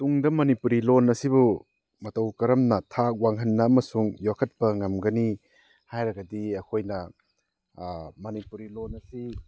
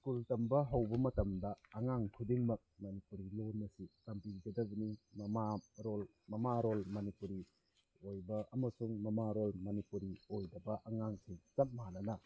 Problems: background sounds at intervals